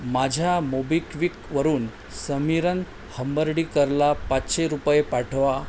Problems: constant background noise